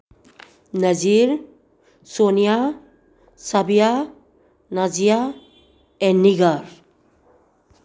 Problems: none marked